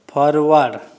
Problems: none marked